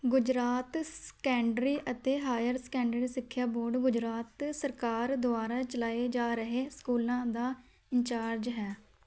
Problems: none marked